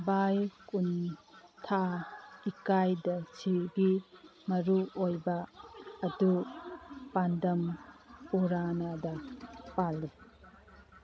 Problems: background conversations at intervals